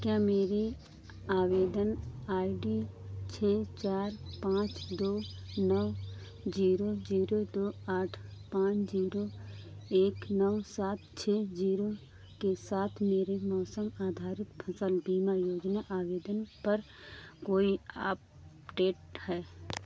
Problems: constant background noise